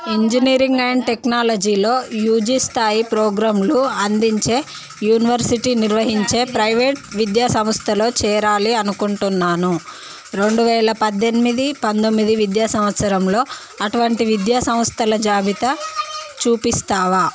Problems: constant background noise, background conversations at intervals